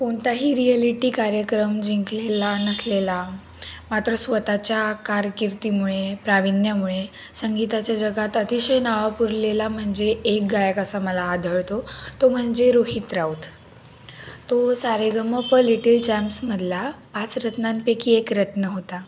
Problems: none marked